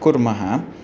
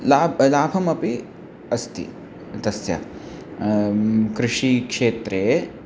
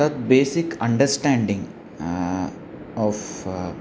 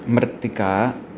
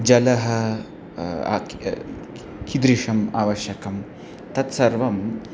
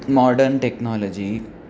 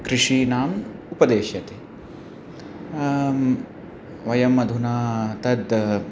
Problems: constant background noise